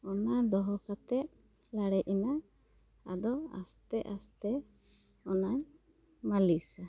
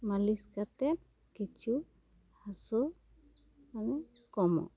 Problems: none marked